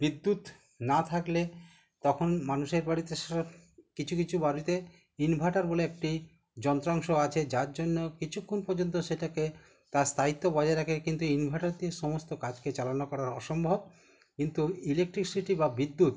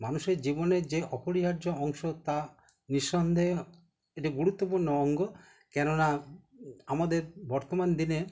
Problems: background conversations at intervals